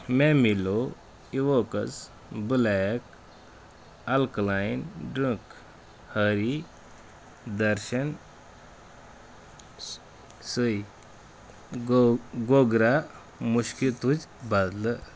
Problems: background sounds at intervals